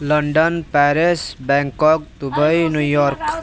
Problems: constant background noise, background conversations at intervals